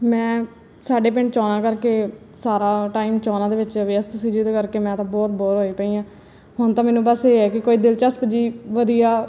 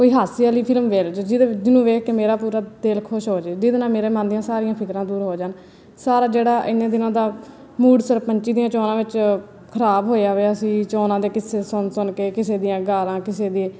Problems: none marked